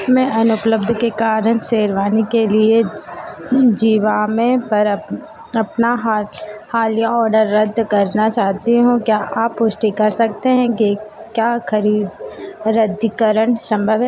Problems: constant background noise